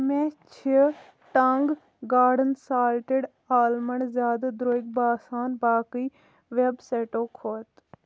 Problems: none marked